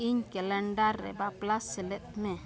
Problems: constant background noise, continuous background conversations